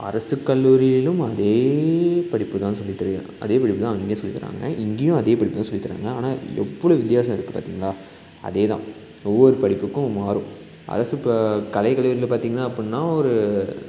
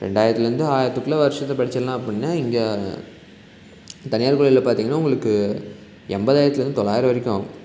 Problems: constant background noise